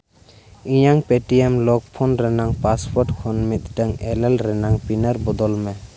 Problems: constant background noise